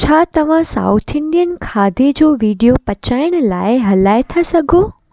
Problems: none marked